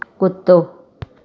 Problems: constant background noise